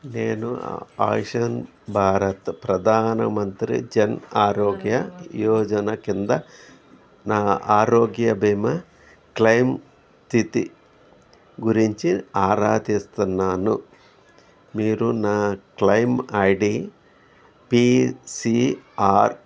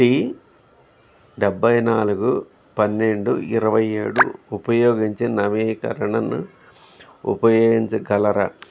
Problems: background sounds at intervals